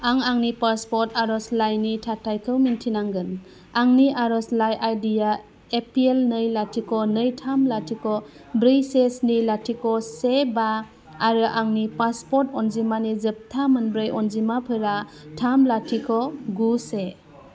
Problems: none marked